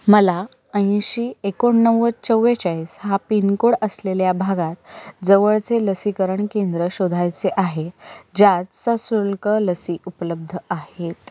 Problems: background sounds at intervals